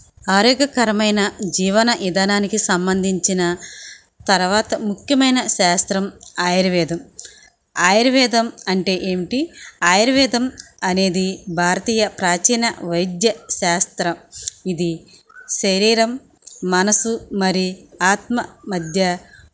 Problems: none marked